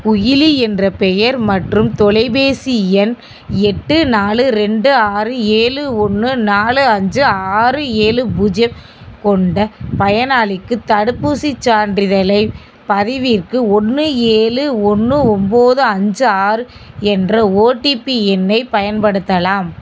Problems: constant background noise